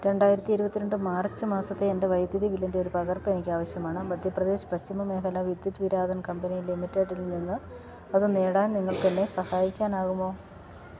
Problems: background sounds at intervals